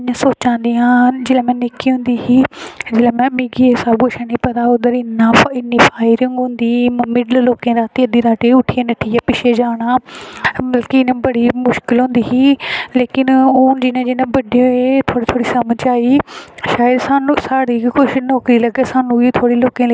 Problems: background sounds at intervals